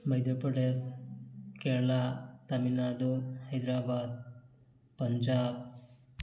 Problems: background sounds at intervals, background conversations at intervals